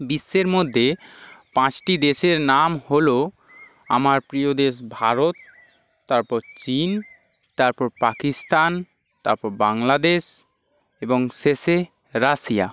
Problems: background sounds at intervals